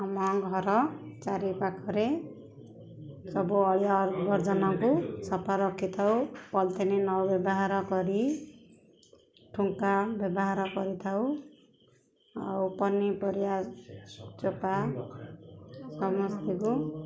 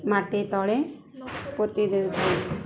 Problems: background sounds at intervals, background conversations at intervals